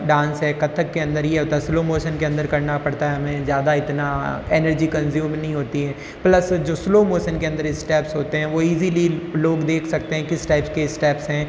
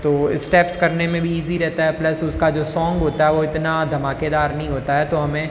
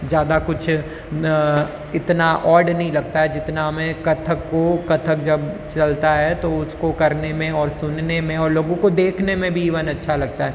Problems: constant background noise, background conversations at intervals